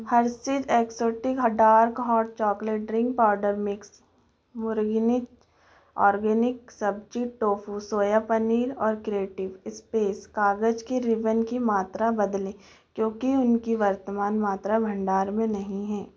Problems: background conversations at intervals